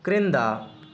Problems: constant background noise